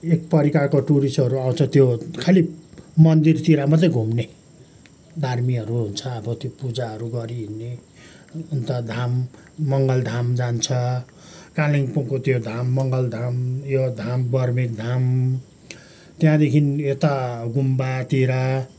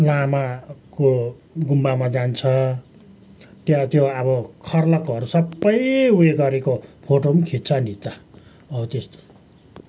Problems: background sounds at intervals, background conversations at intervals